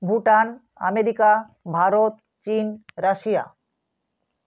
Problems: none marked